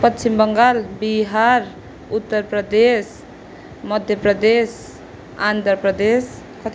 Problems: background sounds at intervals